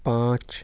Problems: background sounds at intervals